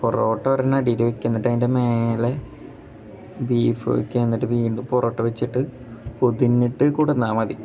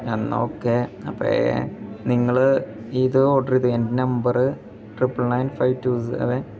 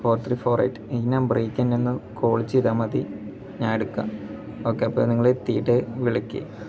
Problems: background sounds at intervals